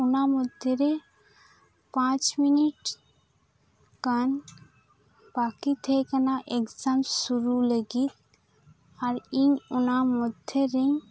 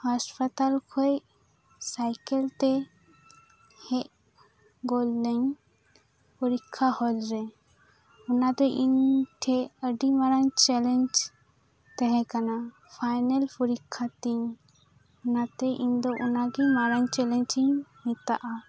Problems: constant background noise, background conversations at intervals